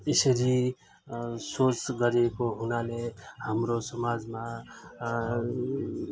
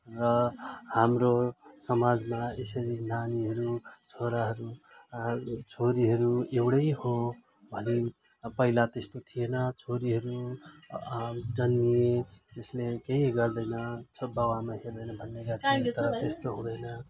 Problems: constant background noise, continuous background conversations